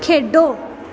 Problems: constant background noise